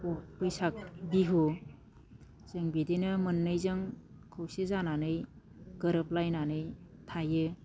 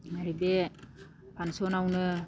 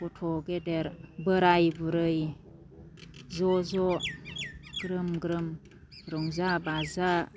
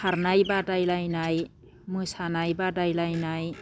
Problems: none marked